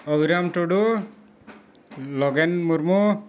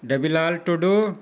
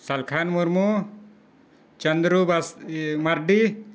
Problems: constant background noise